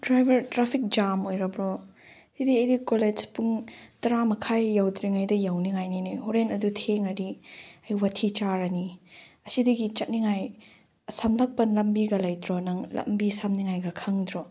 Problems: none marked